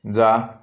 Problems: none marked